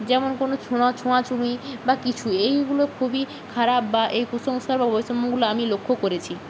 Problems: constant background noise